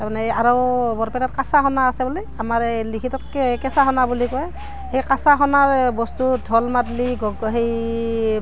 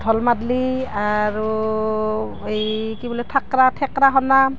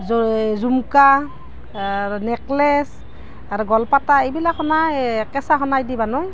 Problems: none marked